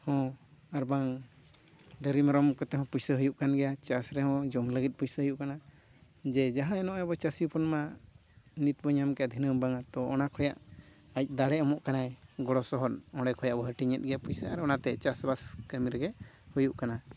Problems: background sounds at intervals